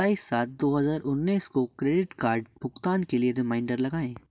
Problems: background sounds at intervals